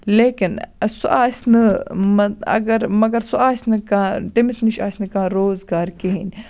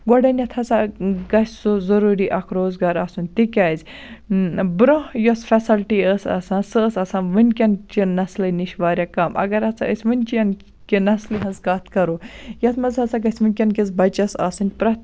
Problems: constant background noise